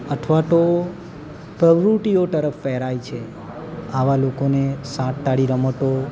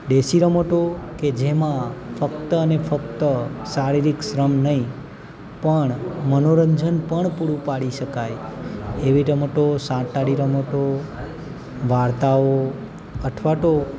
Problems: constant background noise